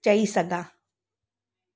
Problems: none marked